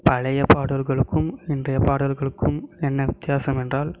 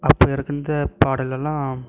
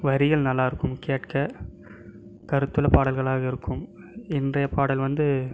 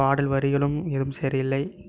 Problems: none marked